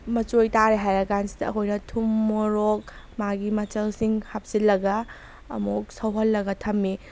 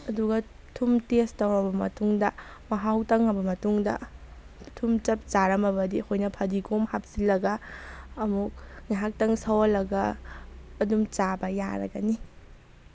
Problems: background sounds at intervals